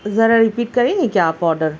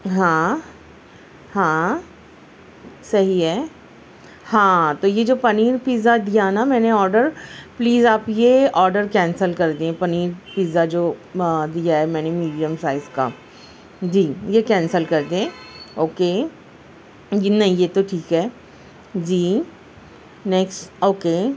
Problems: constant background noise